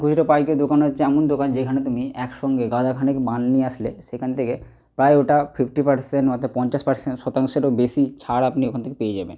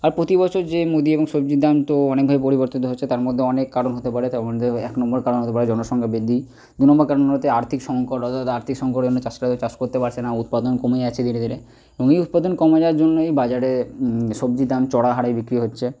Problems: none marked